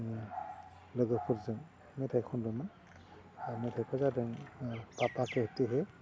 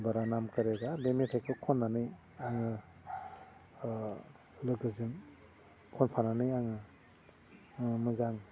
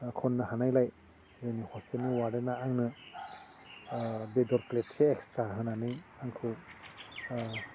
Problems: low volume